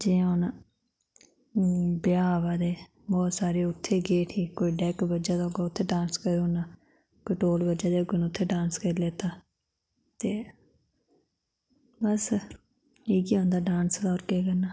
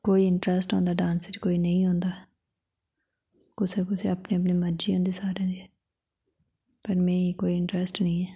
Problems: none marked